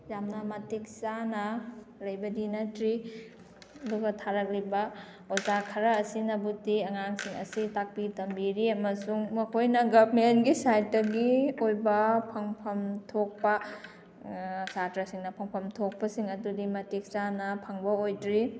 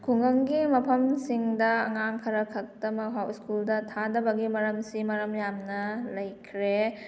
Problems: background sounds at intervals, background conversations at intervals